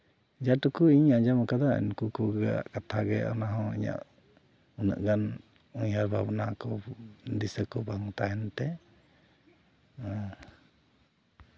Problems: background sounds at intervals